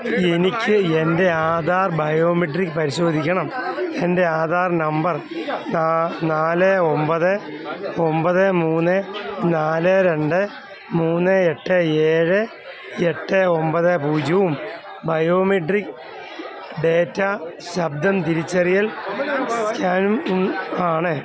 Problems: constant background noise